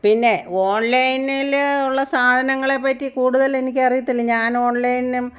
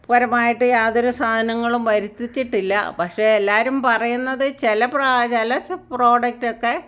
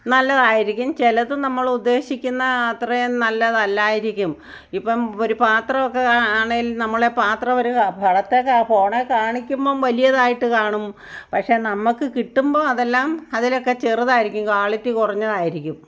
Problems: none marked